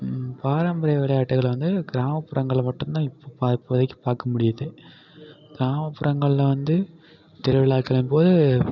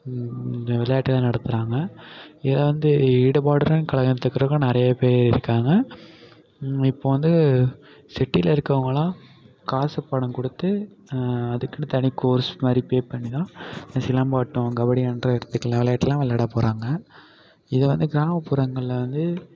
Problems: none marked